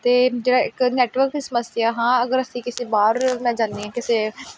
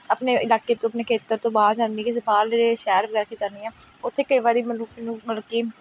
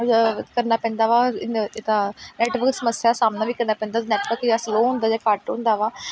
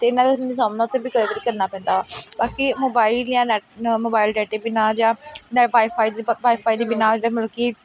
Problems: background sounds at intervals, background conversations at intervals